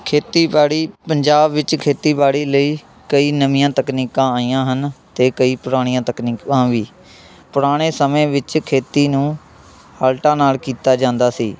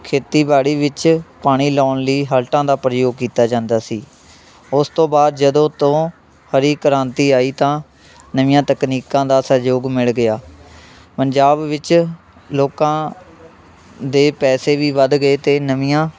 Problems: constant background noise, continuous background conversations